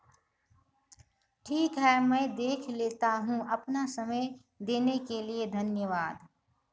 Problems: none marked